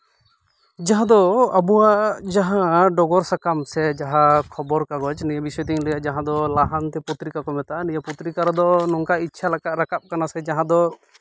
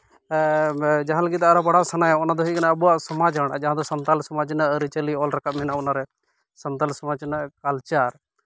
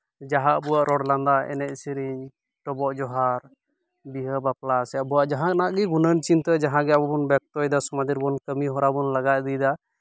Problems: background sounds at intervals